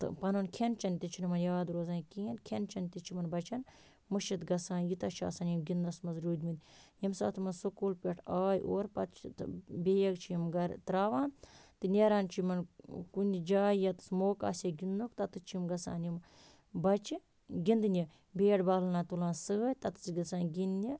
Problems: none marked